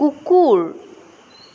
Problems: none marked